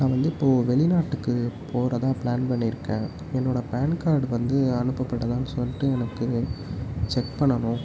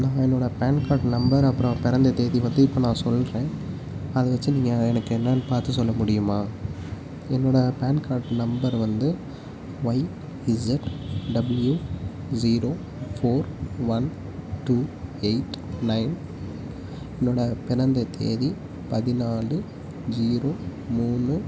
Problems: constant background noise, low volume